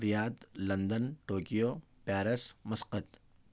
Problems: none marked